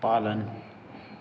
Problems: constant background noise